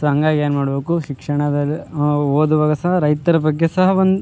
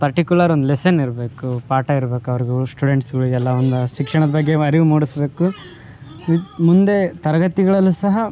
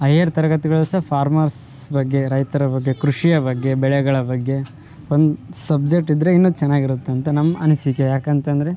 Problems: none marked